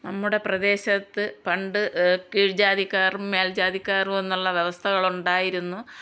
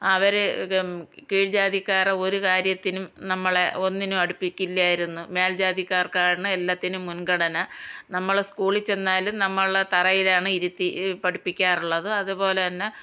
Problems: none marked